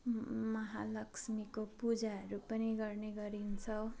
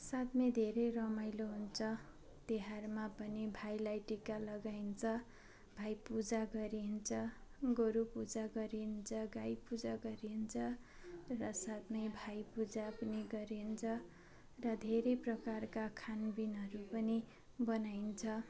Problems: none marked